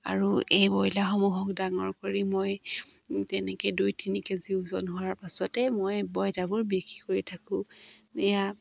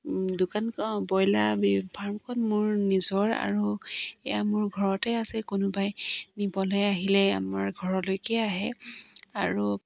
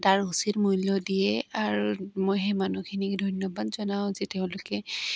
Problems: constant background noise